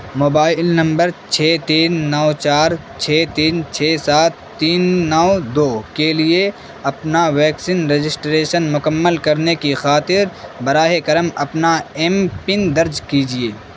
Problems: constant background noise